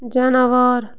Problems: constant background noise